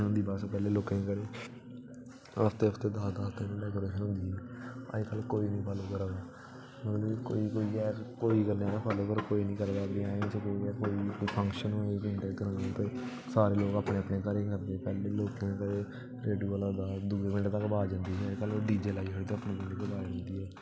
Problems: constant background noise